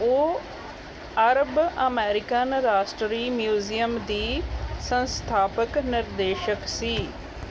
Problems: background sounds at intervals